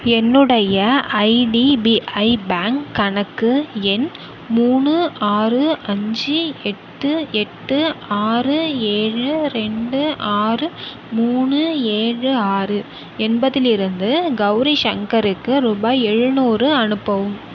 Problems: background sounds at intervals